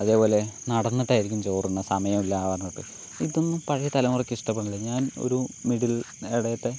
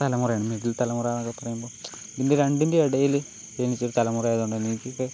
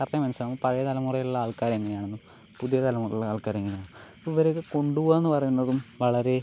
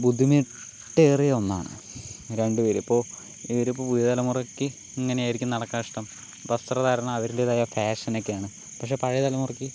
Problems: constant background noise